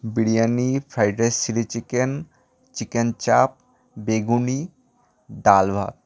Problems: background sounds at intervals